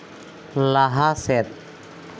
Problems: constant background noise